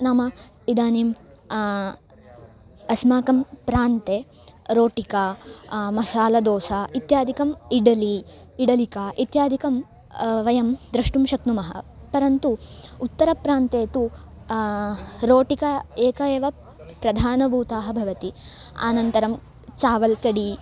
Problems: none marked